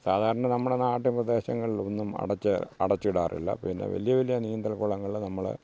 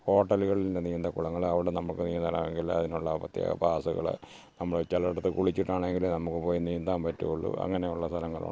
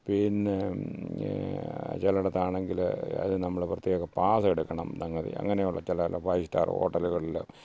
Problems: background sounds at intervals, low volume